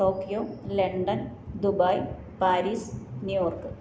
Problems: low volume